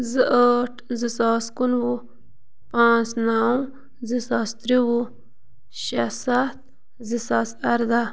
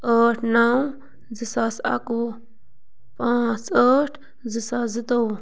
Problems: none marked